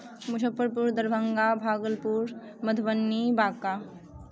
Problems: background sounds at intervals, continuous background conversations